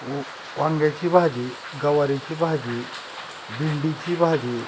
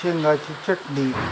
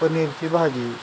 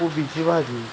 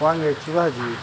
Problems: constant background noise